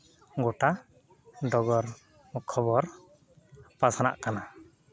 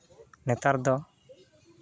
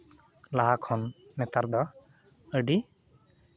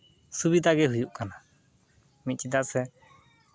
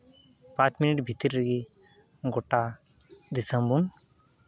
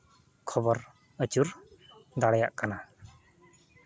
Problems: none marked